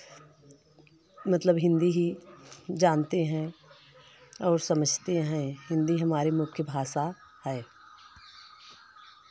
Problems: constant background noise